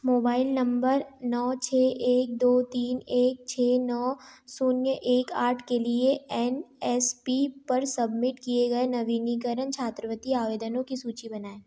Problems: none marked